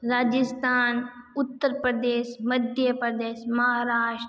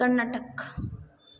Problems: background sounds at intervals